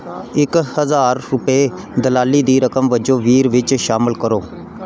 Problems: background sounds at intervals